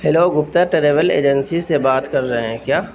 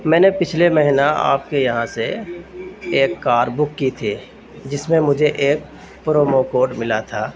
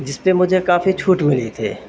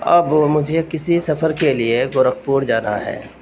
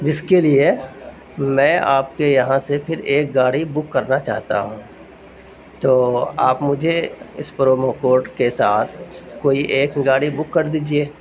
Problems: constant background noise